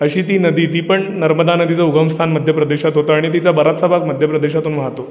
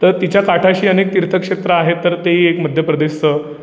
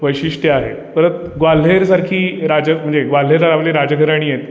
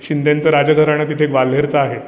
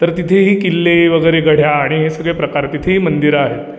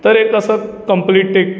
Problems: background sounds at intervals